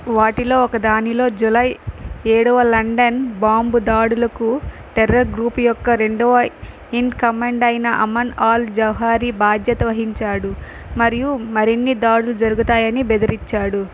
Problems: none marked